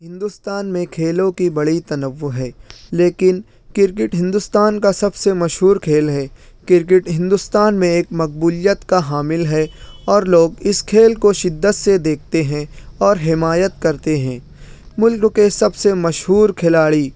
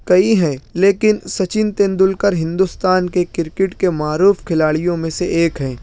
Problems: none marked